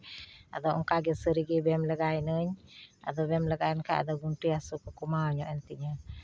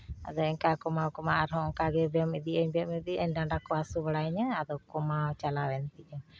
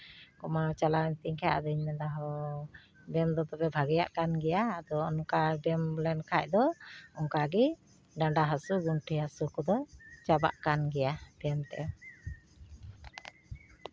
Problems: background sounds at intervals